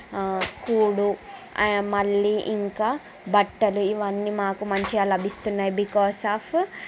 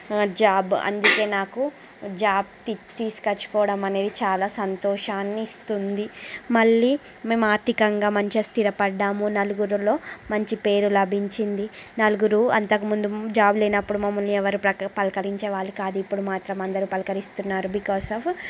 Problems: constant background noise